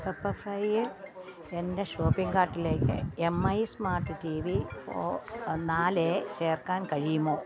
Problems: constant background noise, low volume